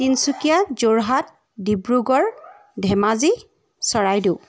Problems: none marked